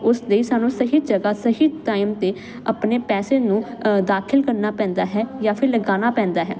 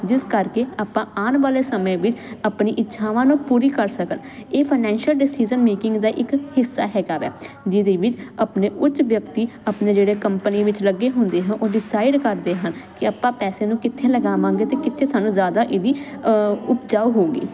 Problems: continuous background conversations